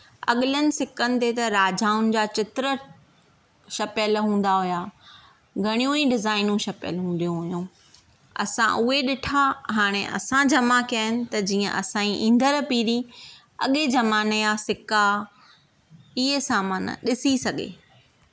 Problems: none marked